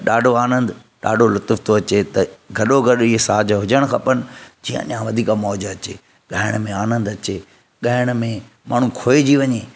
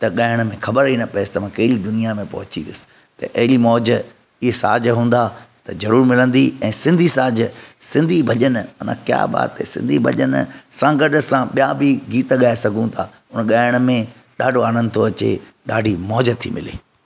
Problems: none marked